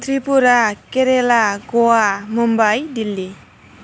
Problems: constant background noise